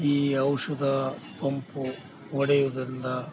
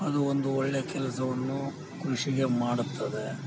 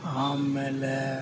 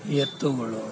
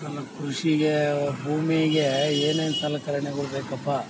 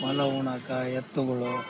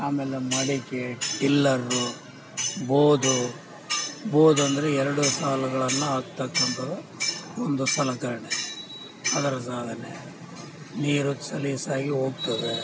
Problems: constant background noise